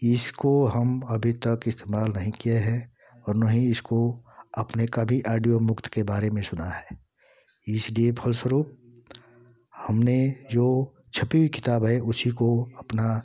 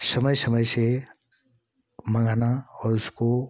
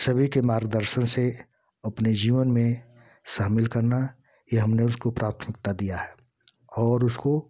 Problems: constant background noise